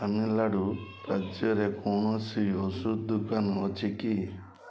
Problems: background sounds at intervals